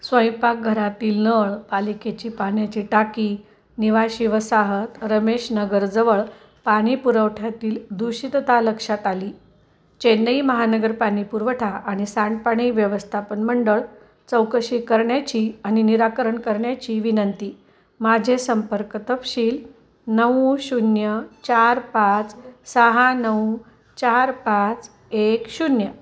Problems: constant background noise, continuous background conversations